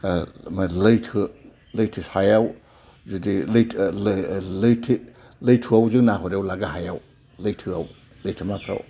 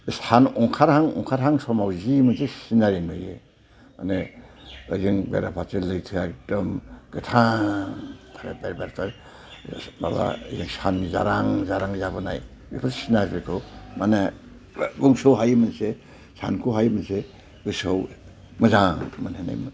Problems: low volume